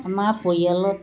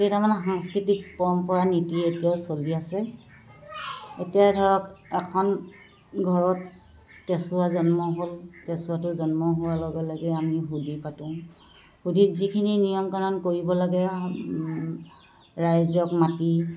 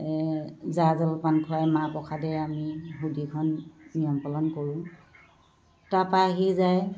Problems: constant background noise